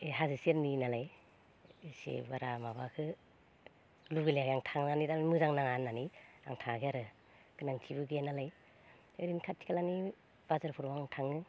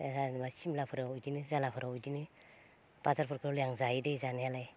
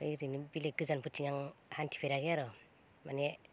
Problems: low volume